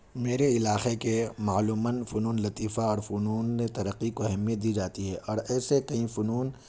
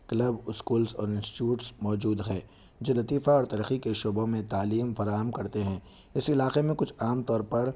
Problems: none marked